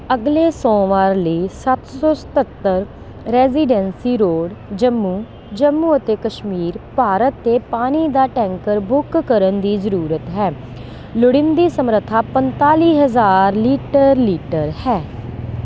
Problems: constant background noise